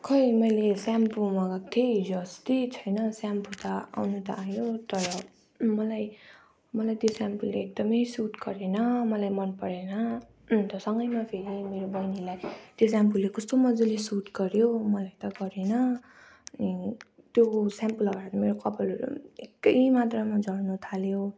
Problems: continuous background conversations